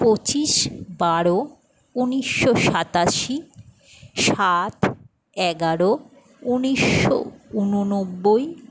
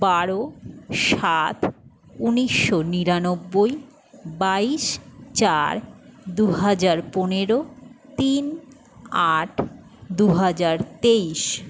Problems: none marked